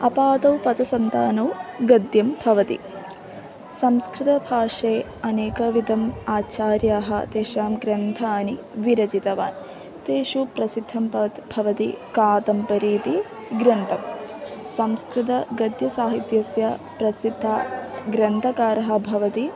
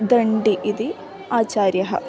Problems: constant background noise, continuous background conversations